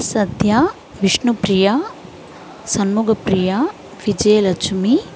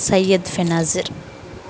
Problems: background sounds at intervals